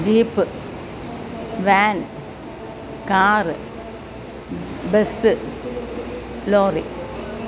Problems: constant background noise